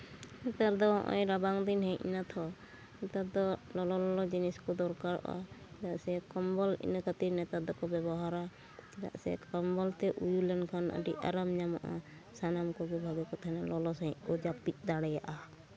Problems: background sounds at intervals